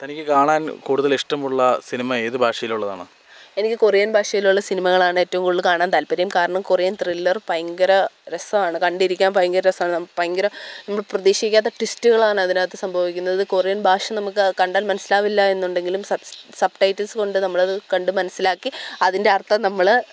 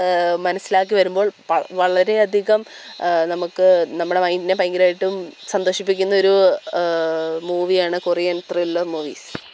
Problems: background sounds at intervals